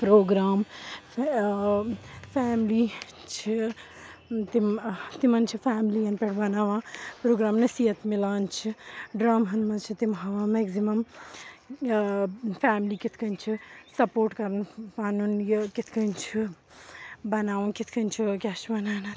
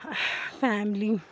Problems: constant background noise